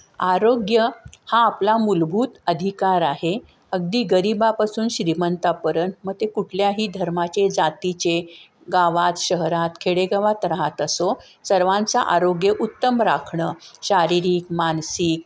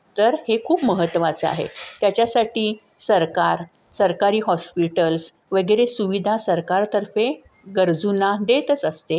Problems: none marked